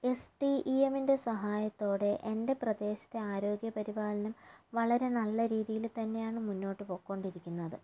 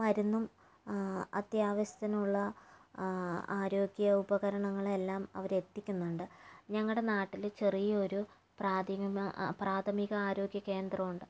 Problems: low volume